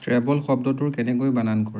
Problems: background sounds at intervals